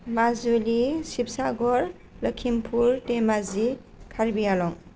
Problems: none marked